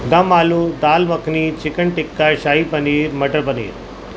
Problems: constant background noise